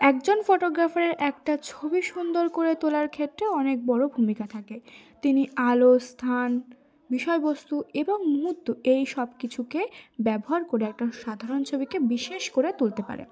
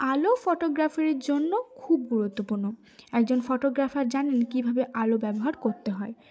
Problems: none marked